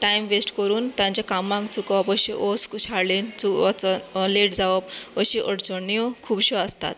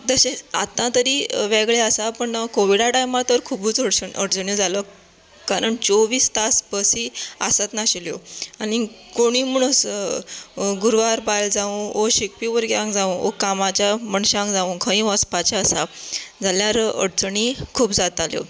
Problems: background sounds at intervals